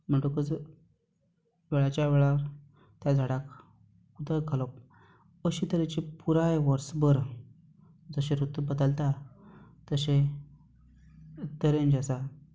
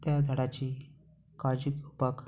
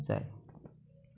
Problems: background sounds at intervals